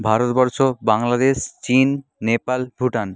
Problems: none marked